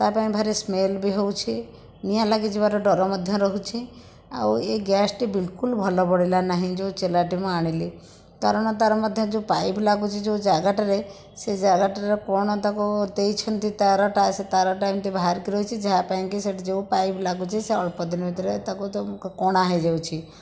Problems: none marked